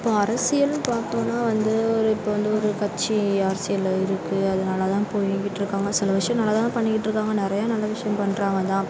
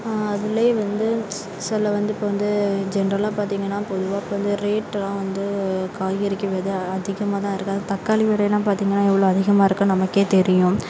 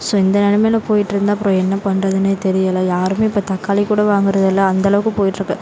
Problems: constant background noise